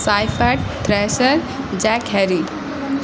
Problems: constant background noise